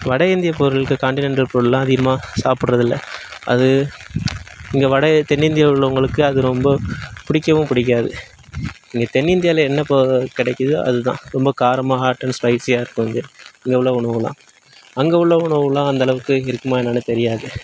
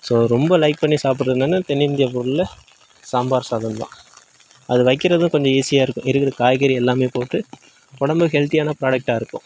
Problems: background sounds at intervals